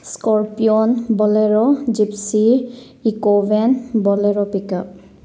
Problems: none marked